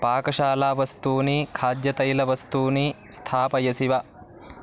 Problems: constant background noise